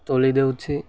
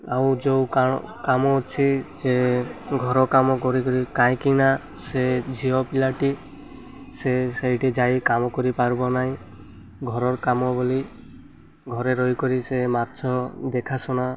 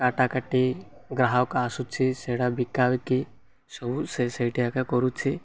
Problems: none marked